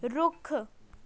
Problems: background sounds at intervals, background conversations at intervals